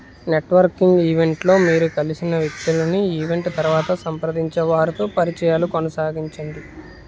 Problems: background sounds at intervals